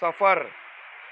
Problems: none marked